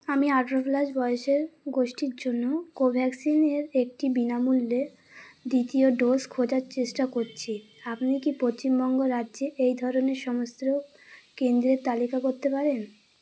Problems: constant background noise